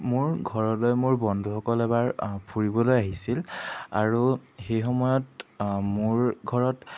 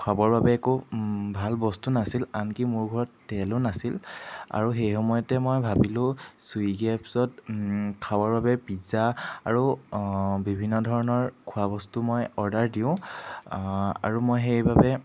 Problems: background sounds at intervals